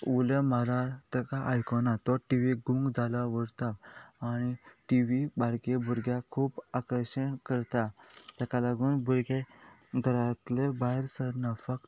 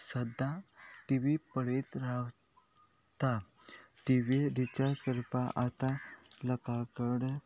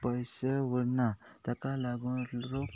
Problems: constant background noise